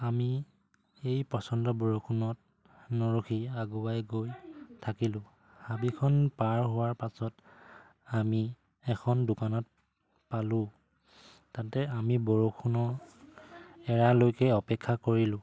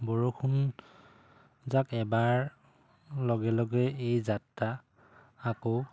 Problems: background sounds at intervals